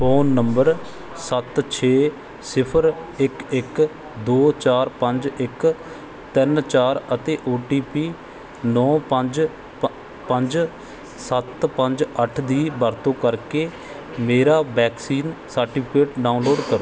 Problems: background sounds at intervals